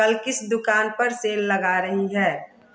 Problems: constant background noise